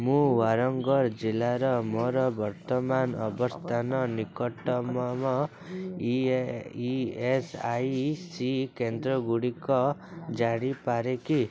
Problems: constant background noise, continuous background conversations